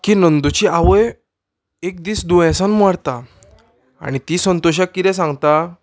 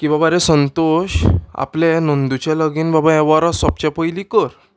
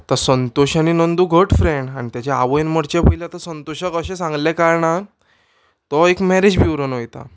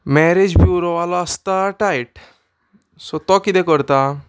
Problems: background sounds at intervals